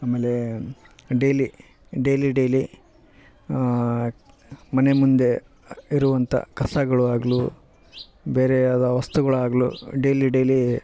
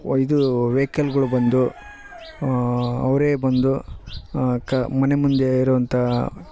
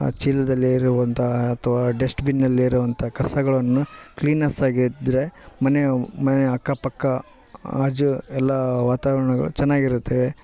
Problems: background sounds at intervals